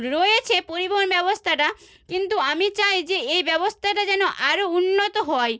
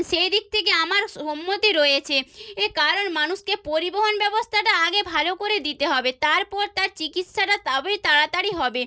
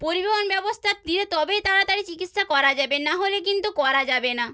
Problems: none marked